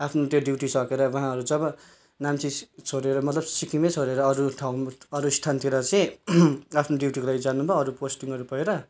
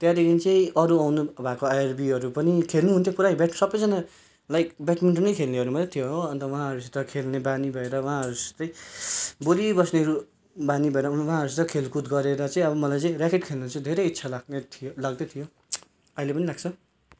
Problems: none marked